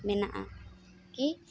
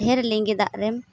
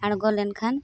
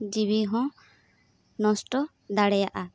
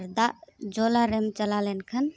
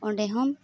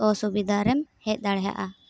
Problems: none marked